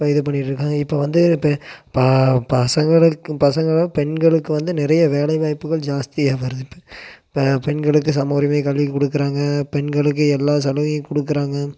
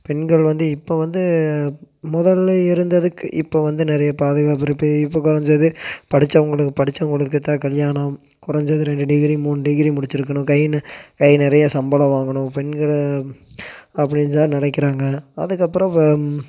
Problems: none marked